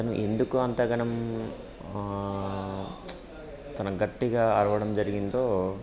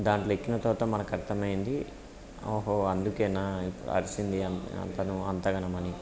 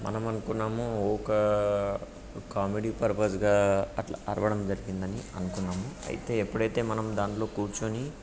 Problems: constant background noise, background conversations at intervals